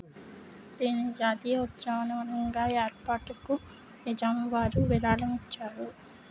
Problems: low volume